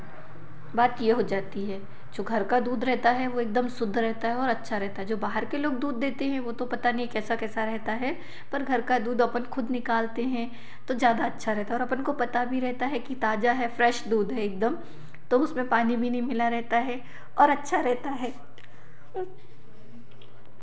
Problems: none marked